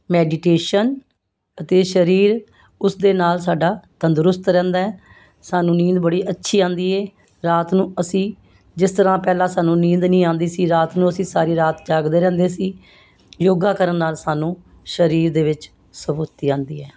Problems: constant background noise